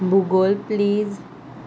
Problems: none marked